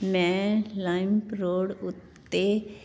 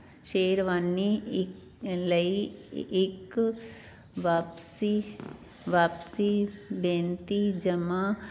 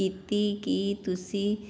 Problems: background sounds at intervals